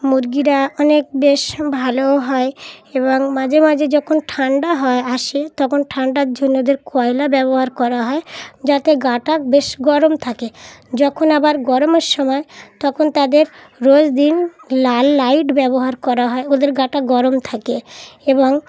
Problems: constant background noise